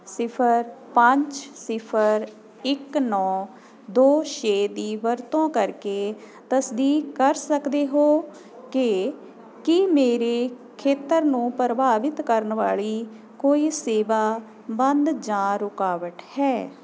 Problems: constant background noise